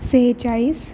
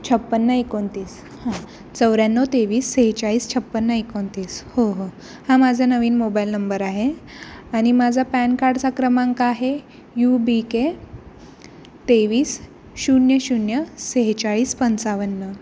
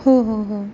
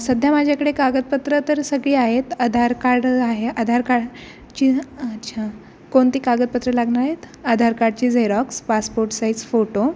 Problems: constant background noise